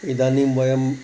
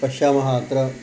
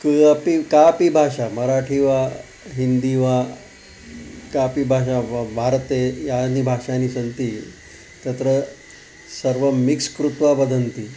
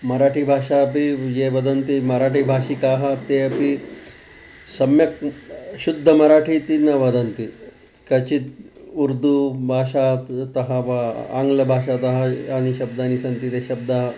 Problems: none marked